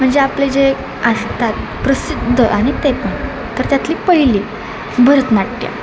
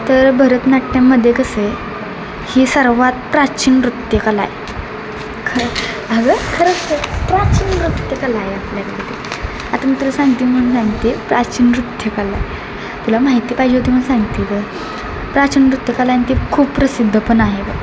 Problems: constant background noise